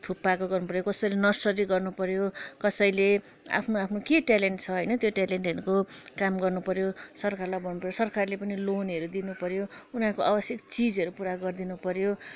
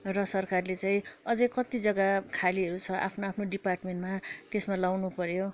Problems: constant background noise